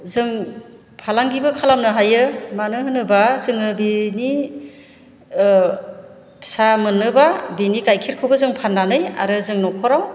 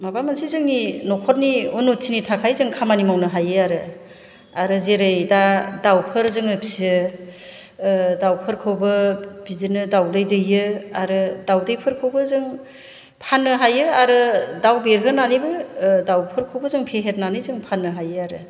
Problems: none marked